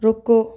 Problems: none marked